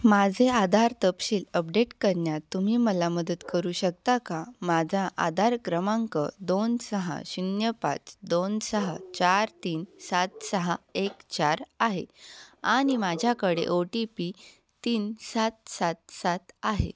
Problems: background sounds at intervals